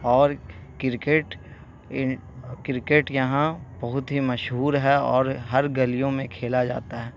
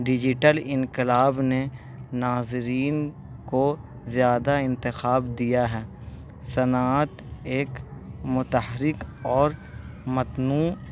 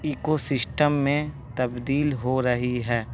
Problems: constant background noise